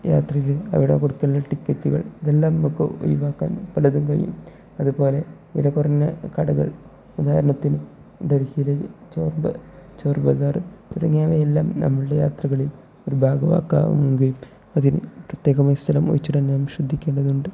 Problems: low volume